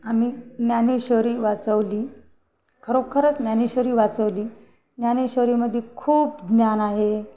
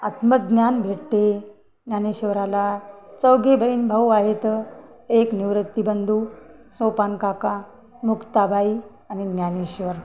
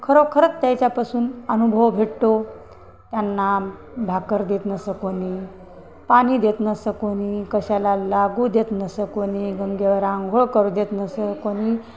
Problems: background conversations at intervals